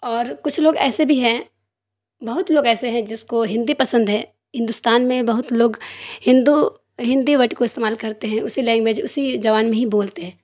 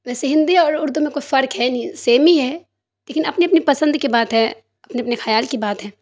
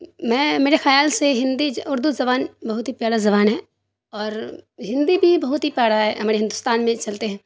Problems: none marked